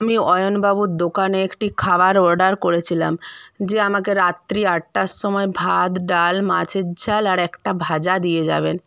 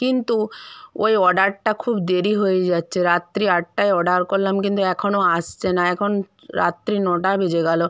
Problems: background conversations at intervals